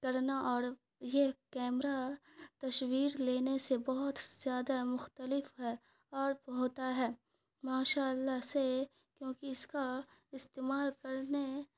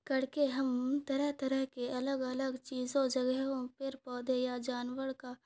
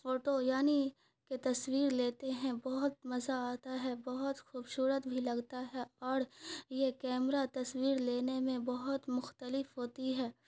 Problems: none marked